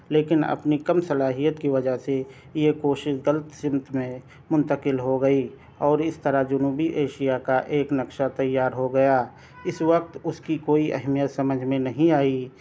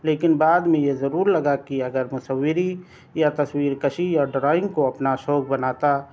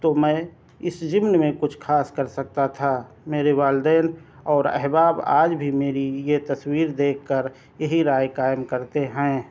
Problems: none marked